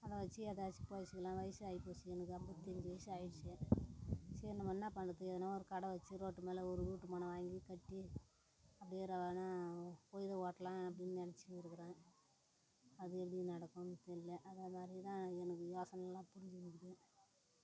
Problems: constant background noise, low volume